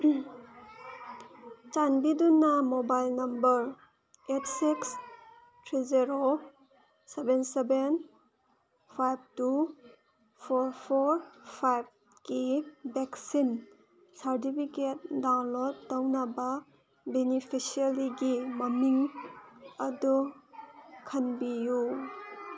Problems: background sounds at intervals